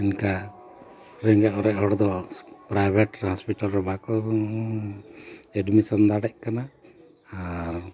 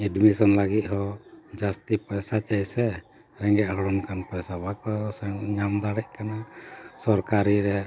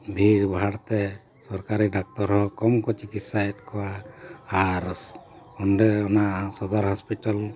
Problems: constant background noise